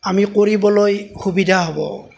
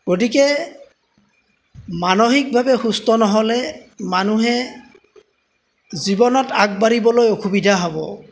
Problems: background sounds at intervals